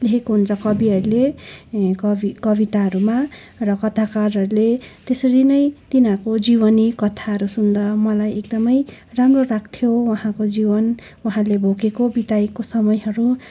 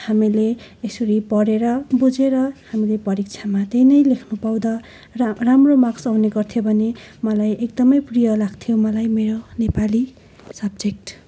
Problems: constant background noise